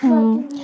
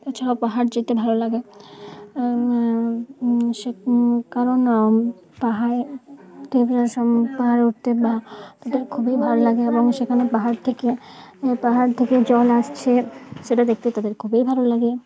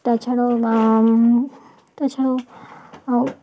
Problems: continuous background conversations